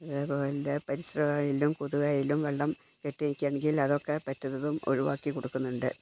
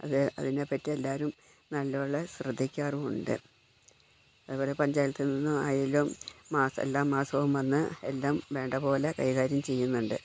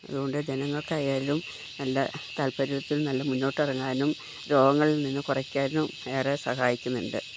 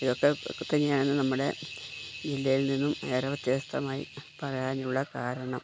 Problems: background sounds at intervals, low volume